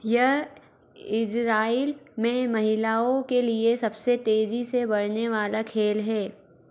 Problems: none marked